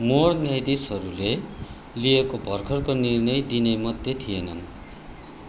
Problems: constant background noise